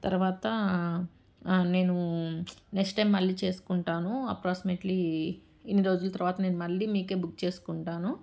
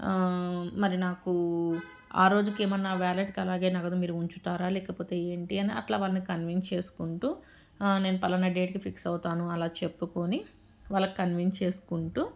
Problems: background sounds at intervals